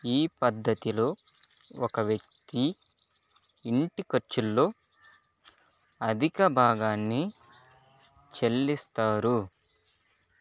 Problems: constant background noise